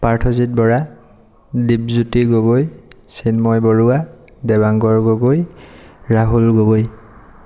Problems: none marked